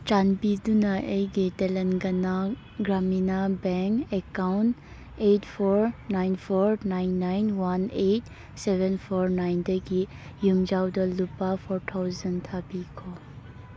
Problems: background sounds at intervals